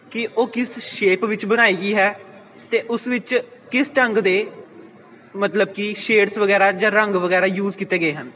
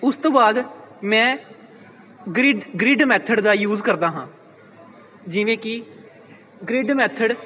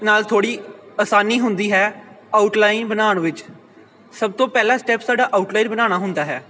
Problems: constant background noise